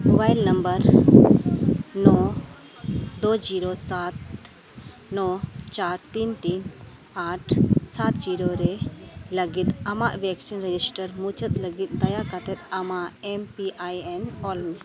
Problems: constant background noise